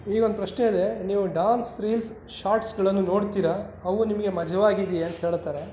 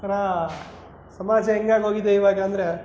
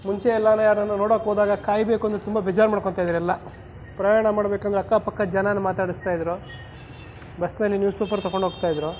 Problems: background sounds at intervals